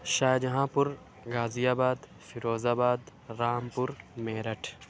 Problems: none marked